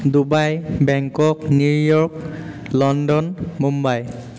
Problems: constant background noise, echo